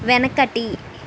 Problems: constant background noise